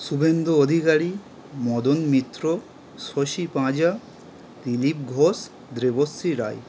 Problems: constant background noise